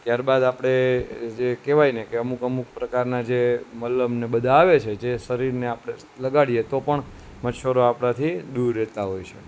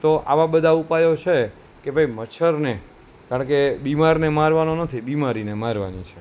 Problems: constant background noise